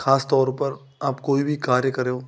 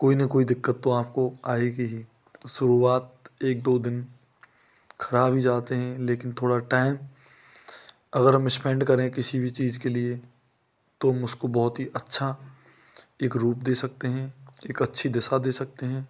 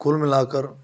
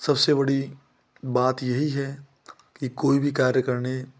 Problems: constant background noise